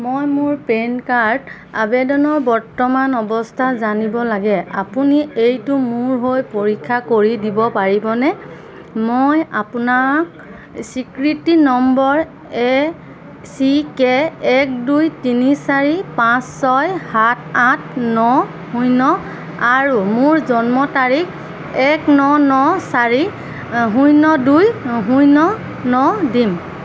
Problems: constant background noise, background conversations at intervals